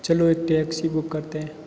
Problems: constant background noise